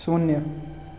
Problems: none marked